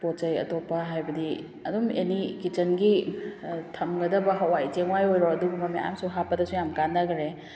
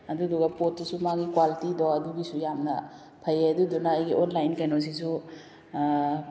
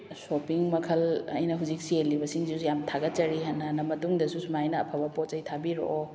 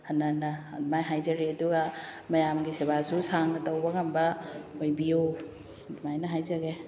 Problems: none marked